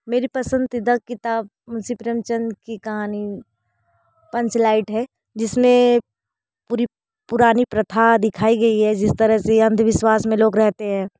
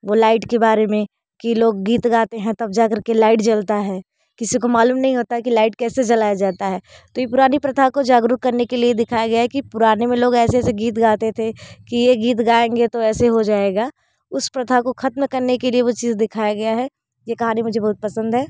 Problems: background sounds at intervals, continuous background conversations